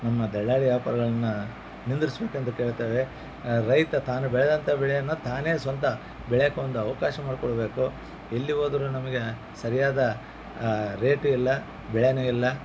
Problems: background sounds at intervals